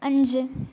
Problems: low volume